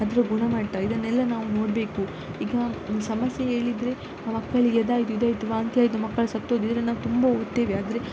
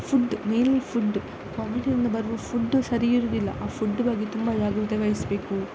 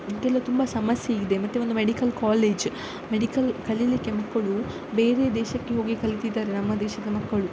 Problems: constant background noise